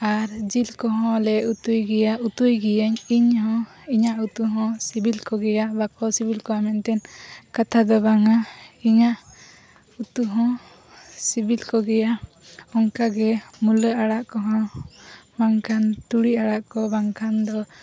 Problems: constant background noise